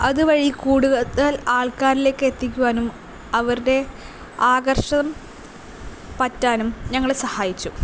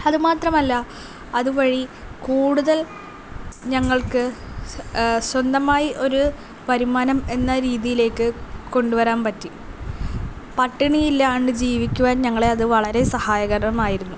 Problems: none marked